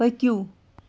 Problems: constant background noise